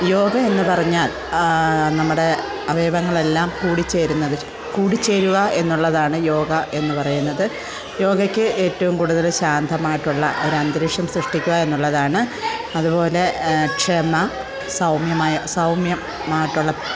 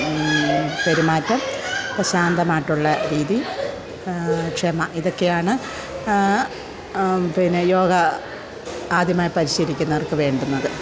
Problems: background sounds at intervals